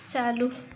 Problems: constant background noise